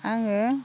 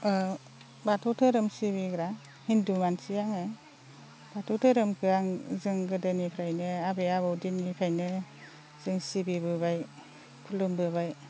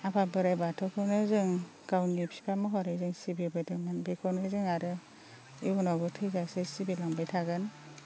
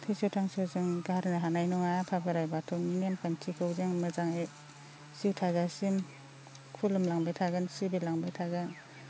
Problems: constant background noise